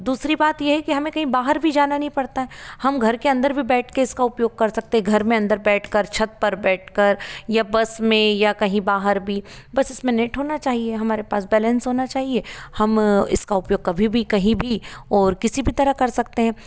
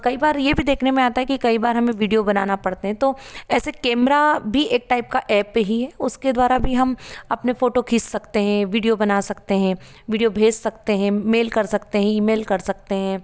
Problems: none marked